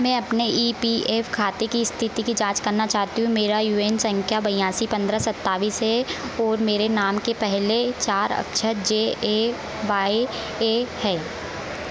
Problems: none marked